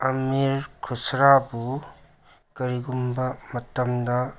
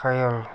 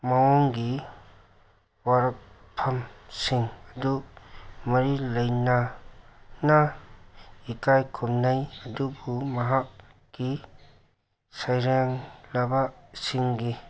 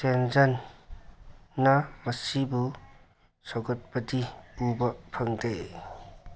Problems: background sounds at intervals